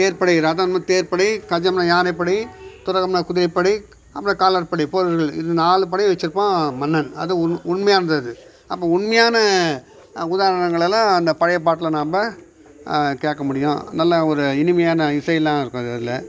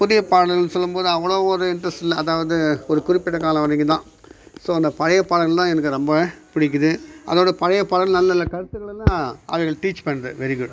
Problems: background sounds at intervals